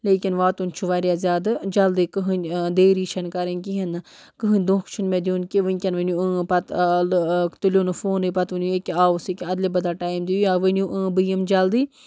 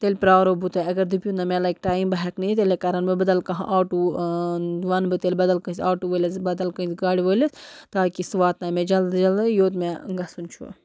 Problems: background sounds at intervals